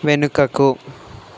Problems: constant background noise